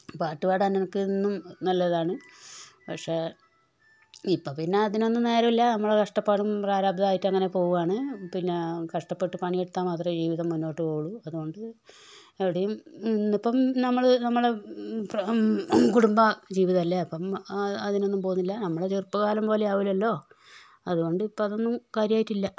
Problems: background sounds at intervals, low volume